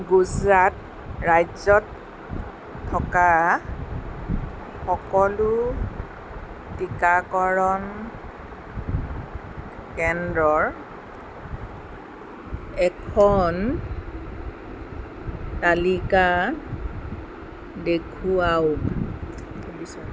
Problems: background conversations at intervals